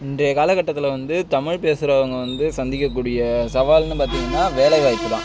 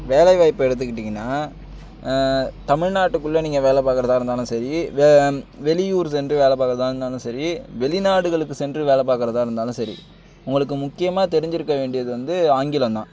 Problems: constant background noise